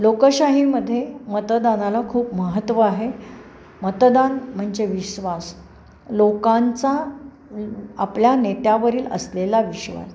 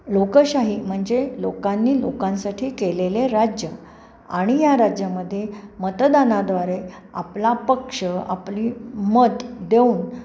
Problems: none marked